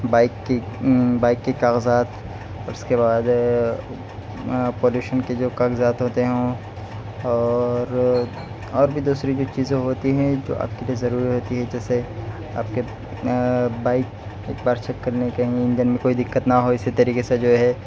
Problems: none marked